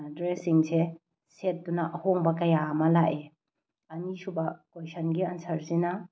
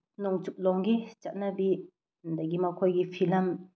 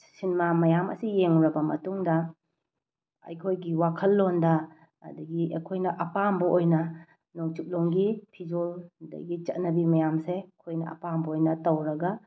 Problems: background sounds at intervals